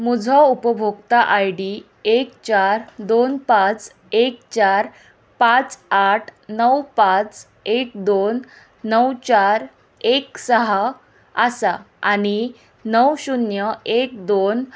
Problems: none marked